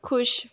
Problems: background conversations at intervals